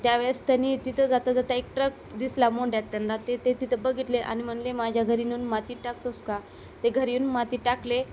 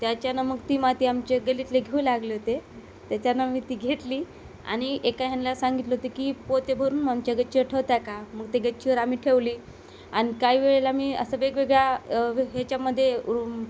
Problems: constant background noise